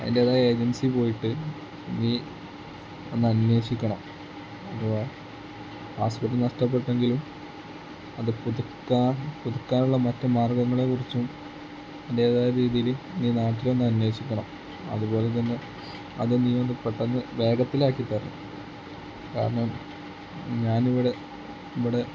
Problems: constant background noise, low volume